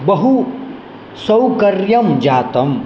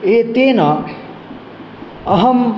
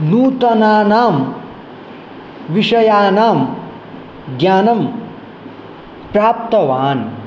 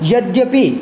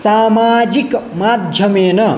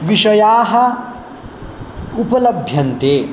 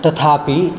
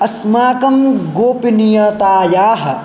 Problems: none marked